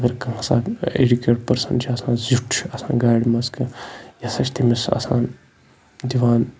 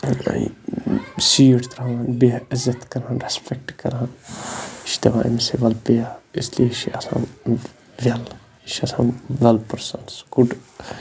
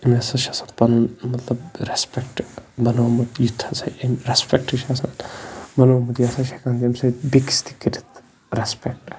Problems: constant background noise